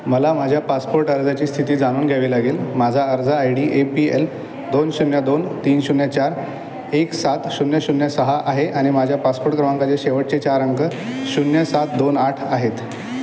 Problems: constant background noise, background conversations at intervals